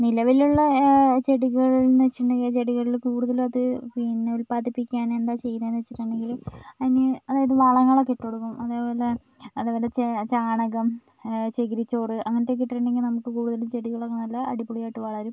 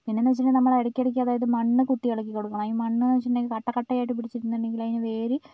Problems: background sounds at intervals